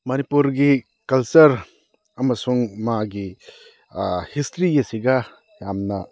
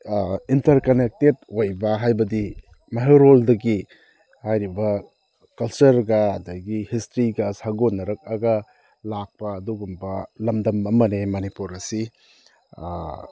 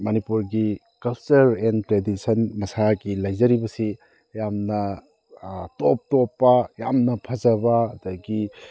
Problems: none marked